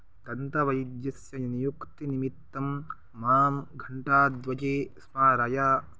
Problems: none marked